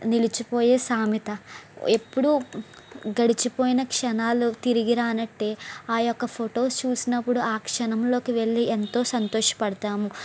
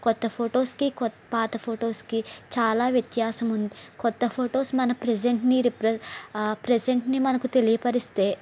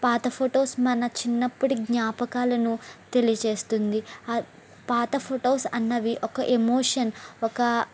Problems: constant background noise